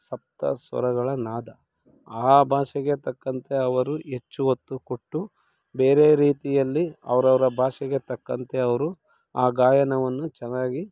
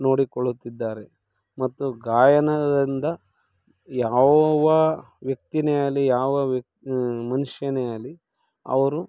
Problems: none marked